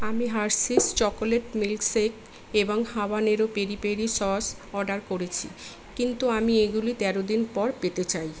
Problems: constant background noise